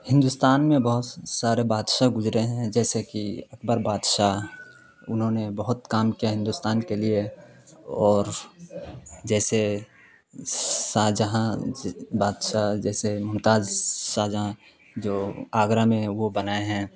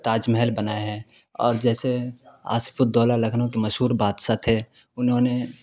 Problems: constant background noise